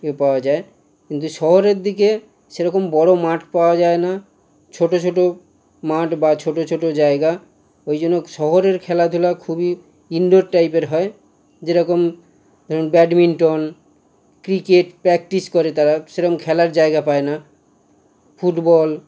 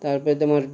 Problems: constant background noise